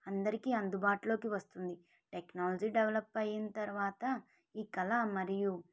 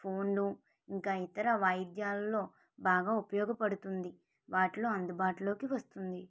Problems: low volume